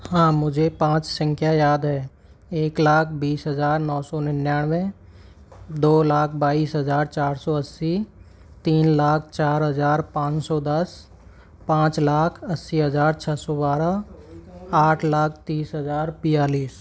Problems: background sounds at intervals